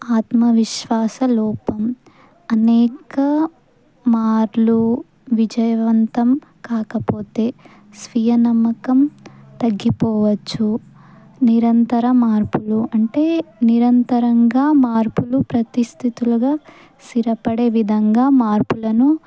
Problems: background sounds at intervals